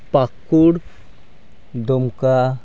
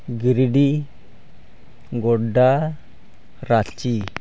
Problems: none marked